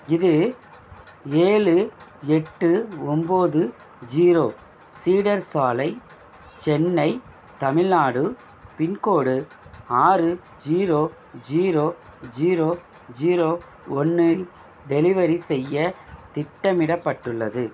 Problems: constant background noise